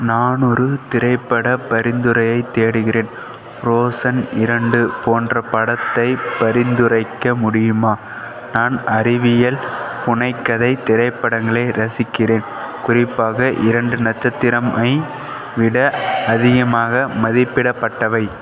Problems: none marked